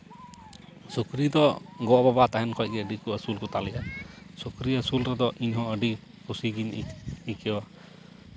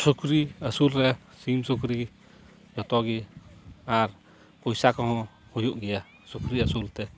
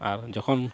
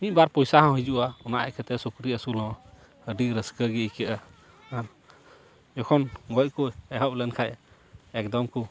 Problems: background sounds at intervals, background conversations at intervals